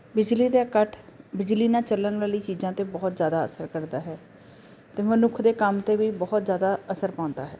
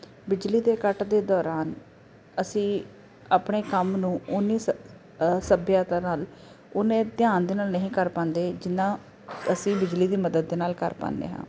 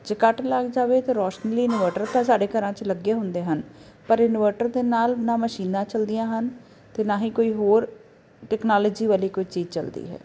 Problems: constant background noise